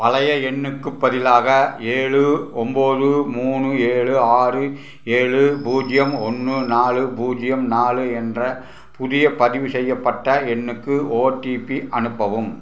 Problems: none marked